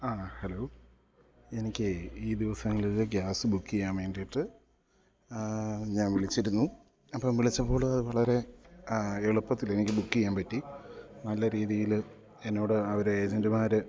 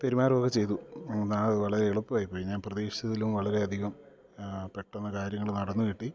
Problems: low volume